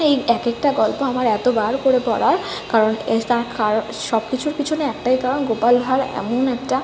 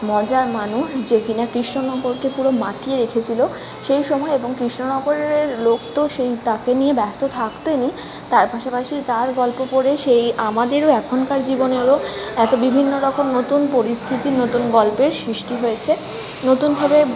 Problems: constant background noise, continuous background conversations